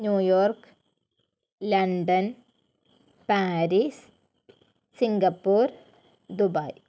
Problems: none marked